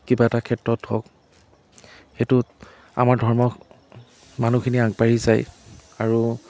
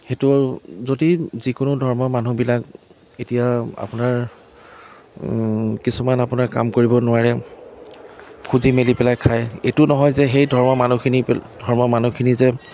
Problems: none marked